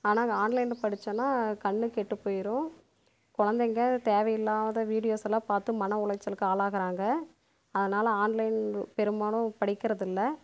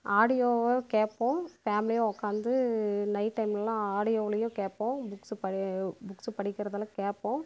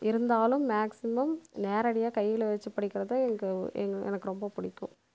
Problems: constant background noise